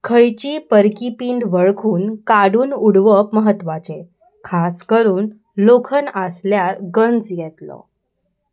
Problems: none marked